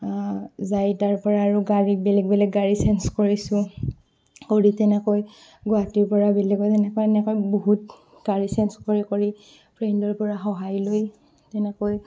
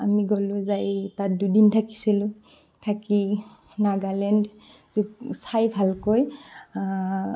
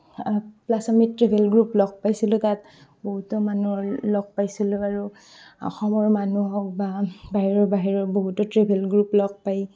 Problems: constant background noise